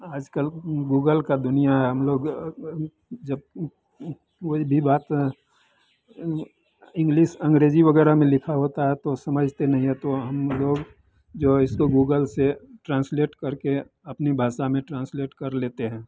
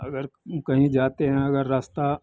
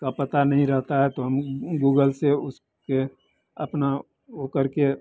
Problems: none marked